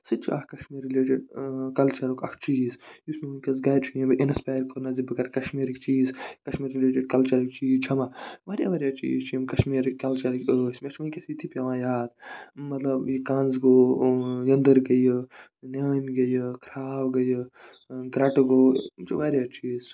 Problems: none marked